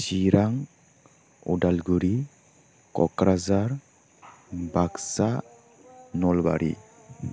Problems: constant background noise, background conversations at intervals